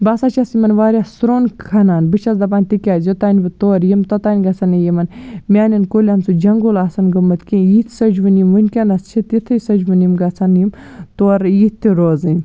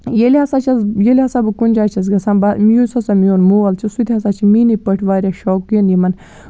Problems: background sounds at intervals